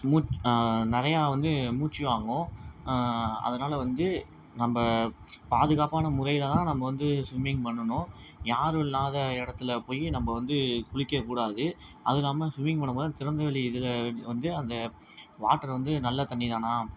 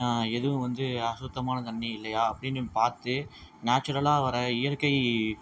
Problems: background sounds at intervals